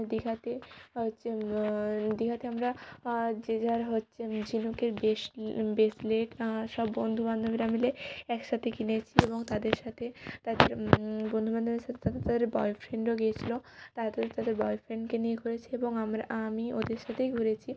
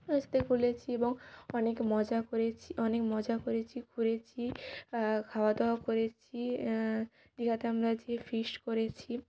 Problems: background sounds at intervals